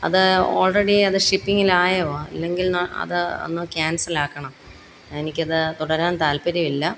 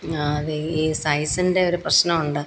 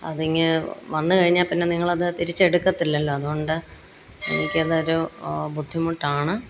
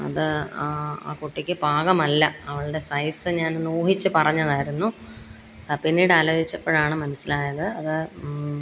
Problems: constant background noise